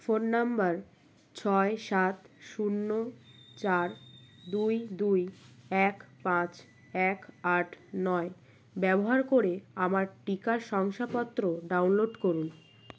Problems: none marked